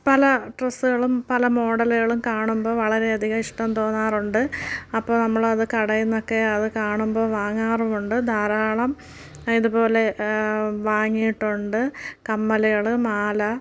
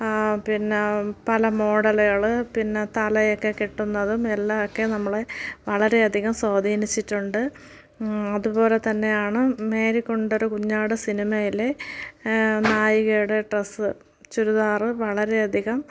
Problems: none marked